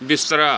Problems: background sounds at intervals